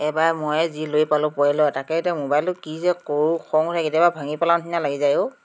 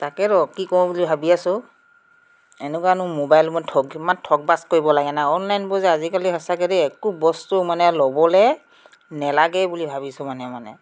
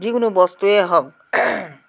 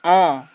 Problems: constant background noise